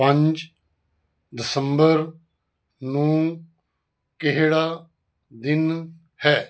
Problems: none marked